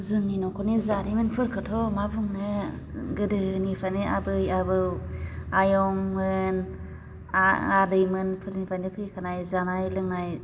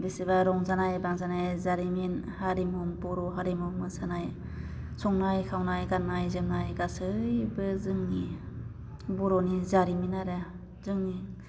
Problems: none marked